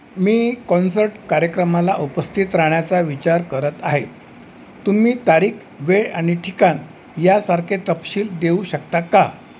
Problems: constant background noise